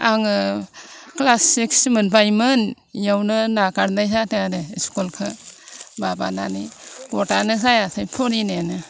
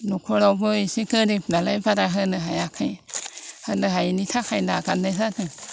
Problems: constant background noise